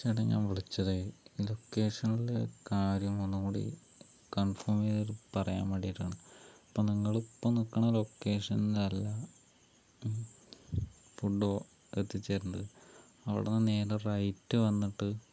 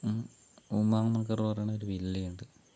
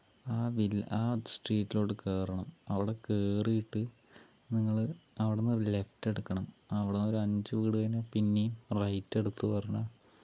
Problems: low volume